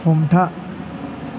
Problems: constant background noise